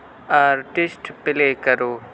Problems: constant background noise